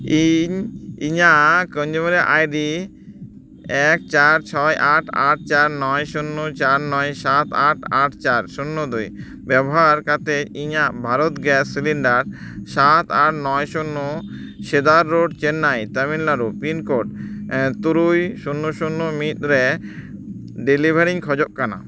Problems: background sounds at intervals